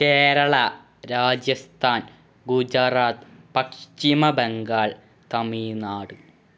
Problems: background sounds at intervals